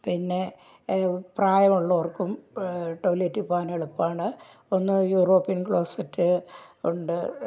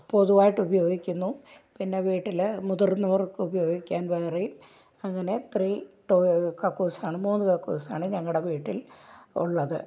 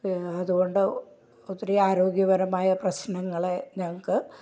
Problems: none marked